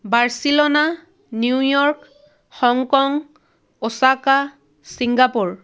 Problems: none marked